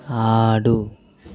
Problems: none marked